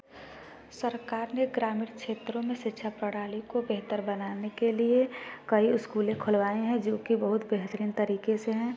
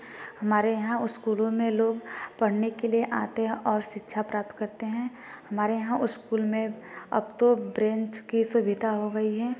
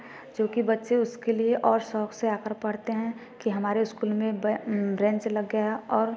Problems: constant background noise